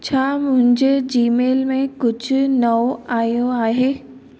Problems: constant background noise, echo